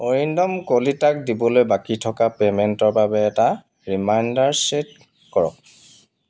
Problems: background sounds at intervals